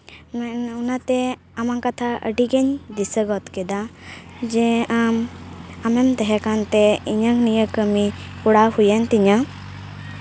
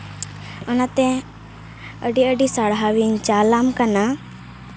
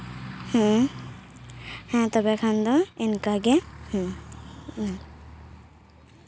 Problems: constant background noise